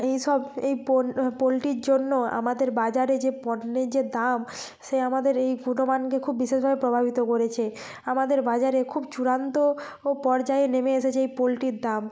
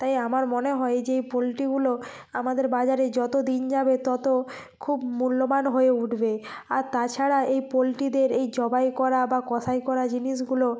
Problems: constant background noise, background conversations at intervals